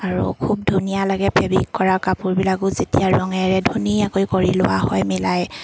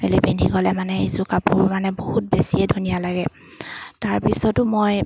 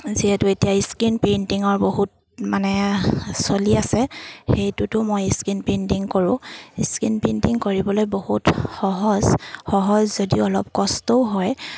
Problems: constant background noise